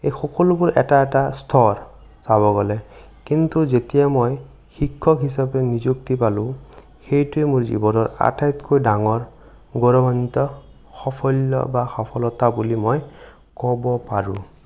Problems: none marked